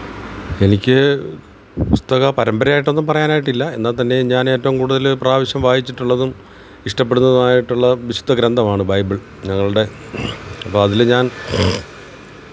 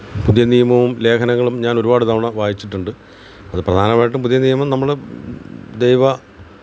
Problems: background sounds at intervals